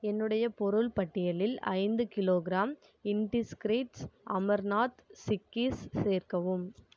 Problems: none marked